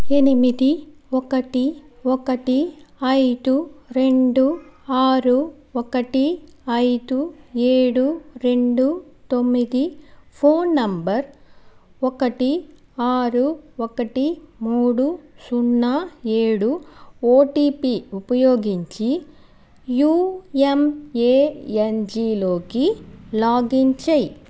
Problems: background sounds at intervals